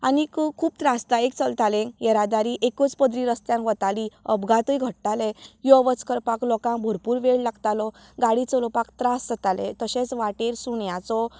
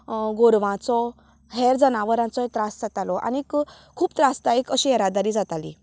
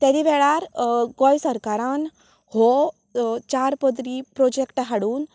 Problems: continuous background conversations